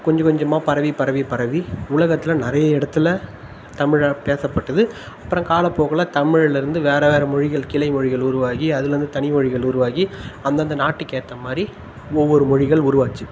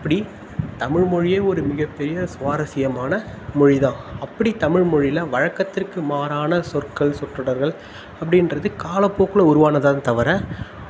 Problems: constant background noise